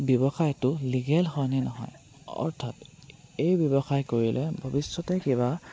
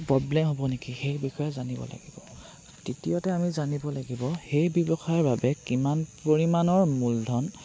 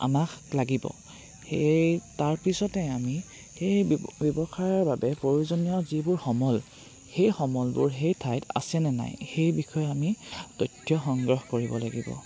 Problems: none marked